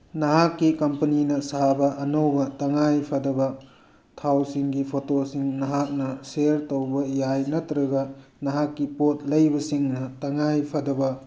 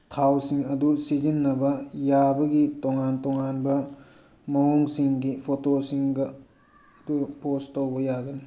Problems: background sounds at intervals